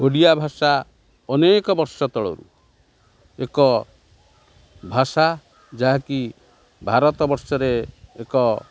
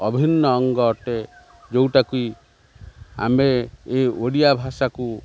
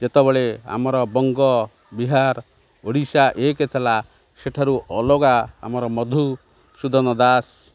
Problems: none marked